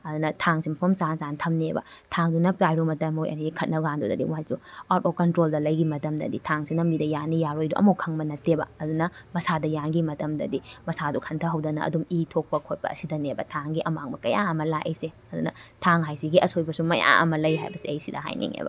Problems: background sounds at intervals